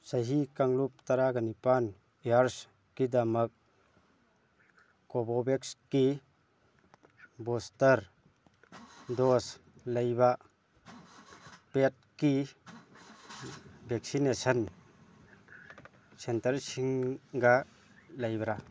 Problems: background sounds at intervals, background conversations at intervals